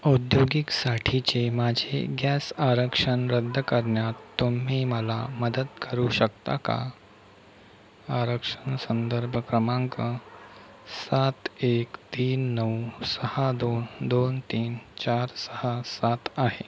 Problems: constant background noise